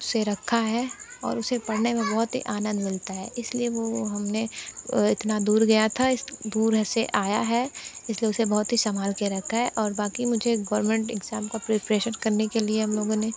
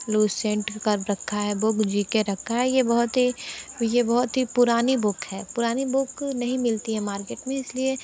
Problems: constant background noise